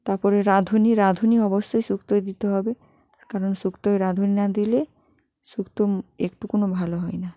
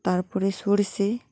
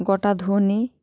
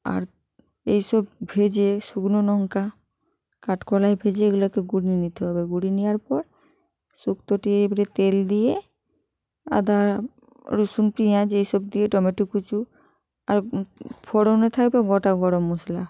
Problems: background sounds at intervals